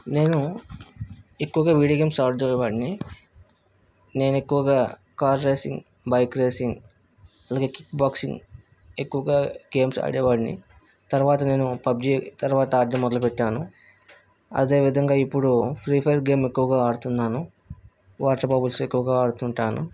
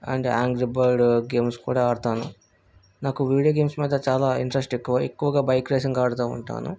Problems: background sounds at intervals